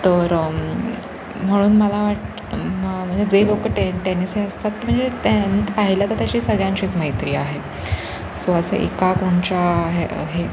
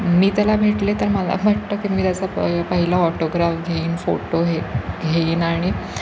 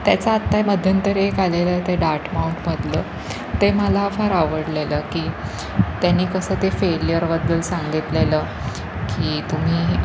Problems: constant background noise